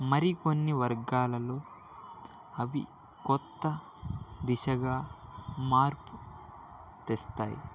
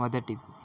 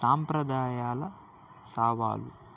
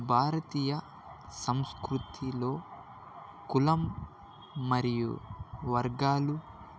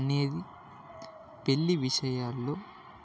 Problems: background sounds at intervals